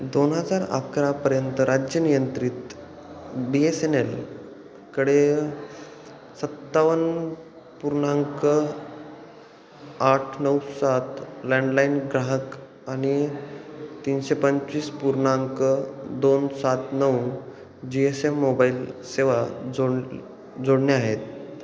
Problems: constant background noise